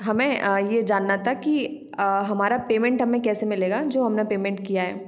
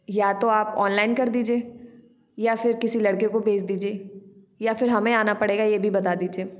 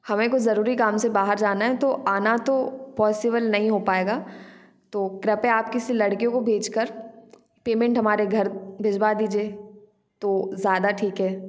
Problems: background sounds at intervals